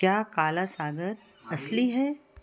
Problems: background conversations at intervals